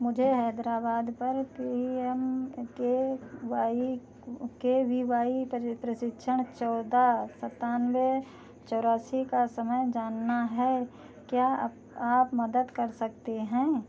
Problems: none marked